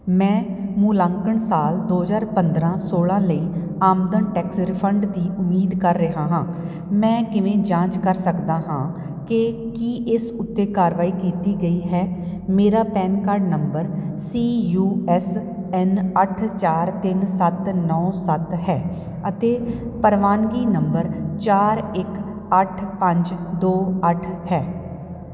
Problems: none marked